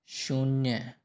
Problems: none marked